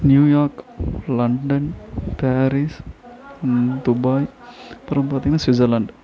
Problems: none marked